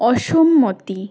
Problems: none marked